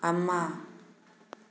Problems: none marked